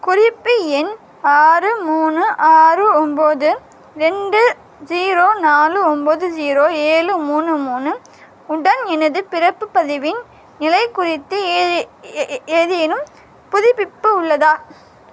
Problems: constant background noise